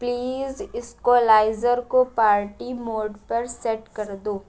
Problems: constant background noise